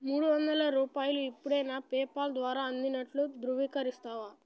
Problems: none marked